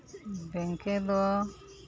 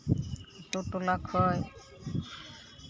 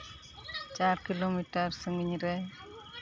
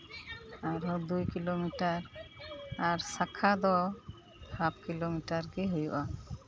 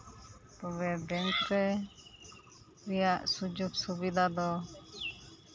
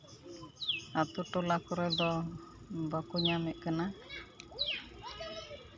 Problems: constant background noise, continuous background conversations